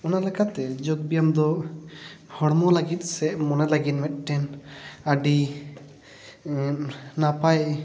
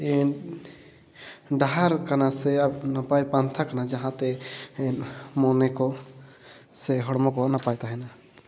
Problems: background sounds at intervals, echo